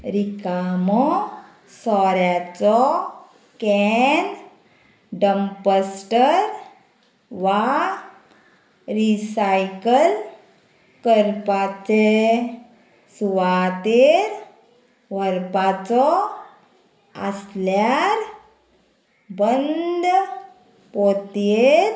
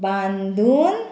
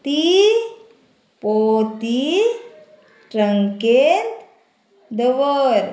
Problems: constant background noise